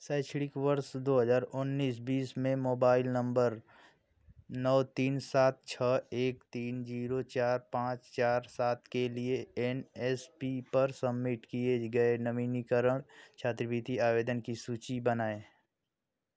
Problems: none marked